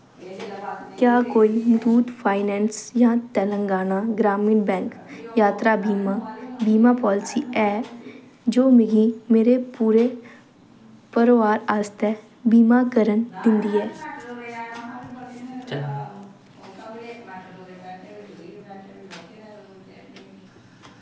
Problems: constant background noise